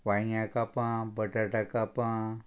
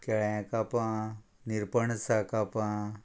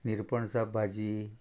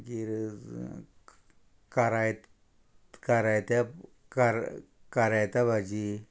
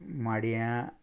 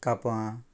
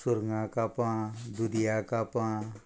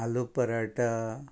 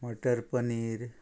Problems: constant background noise